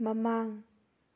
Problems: none marked